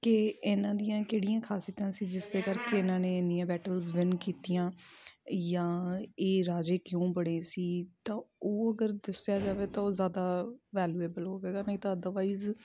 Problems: constant background noise